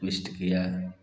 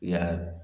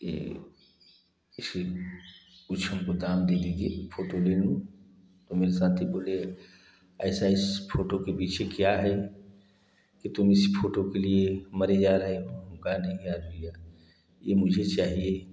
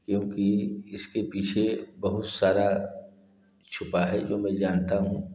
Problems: echo